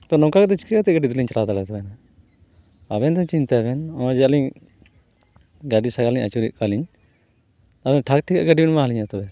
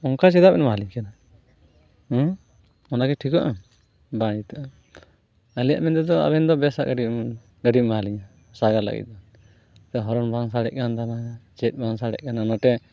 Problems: background sounds at intervals